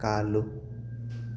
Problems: constant background noise